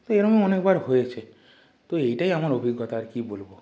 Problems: background sounds at intervals